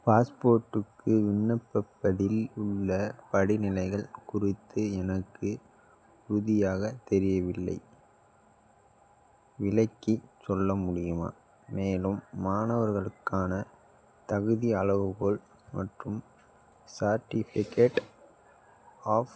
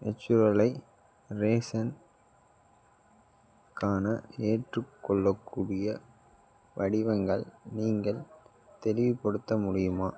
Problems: background sounds at intervals